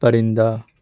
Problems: none marked